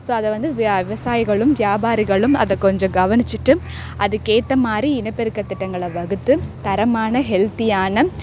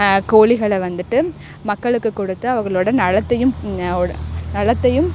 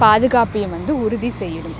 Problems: constant background noise